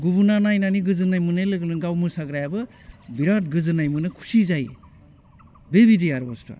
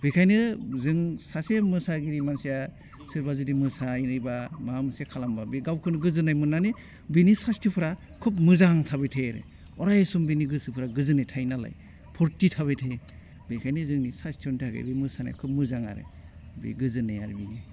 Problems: none marked